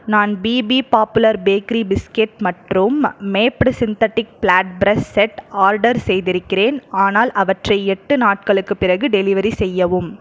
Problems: none marked